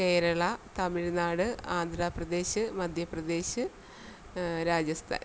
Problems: constant background noise